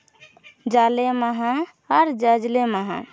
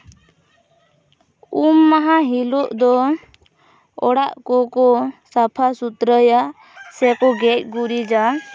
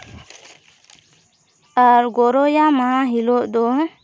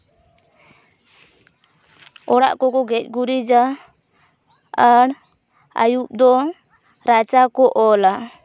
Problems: none marked